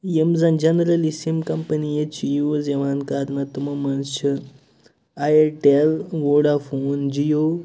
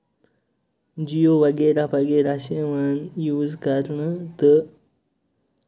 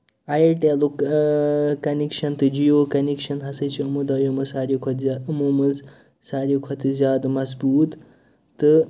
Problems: none marked